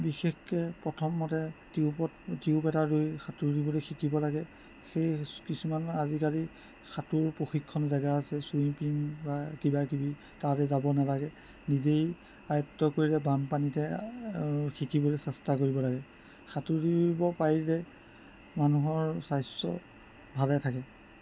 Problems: constant background noise